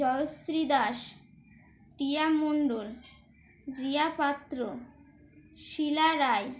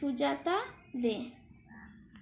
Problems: background sounds at intervals